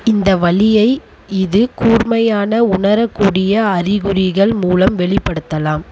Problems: constant background noise